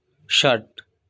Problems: none marked